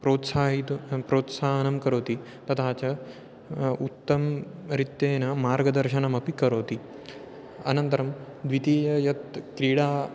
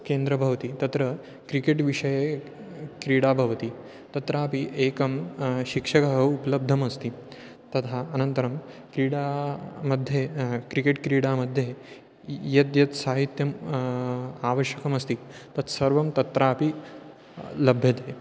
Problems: constant background noise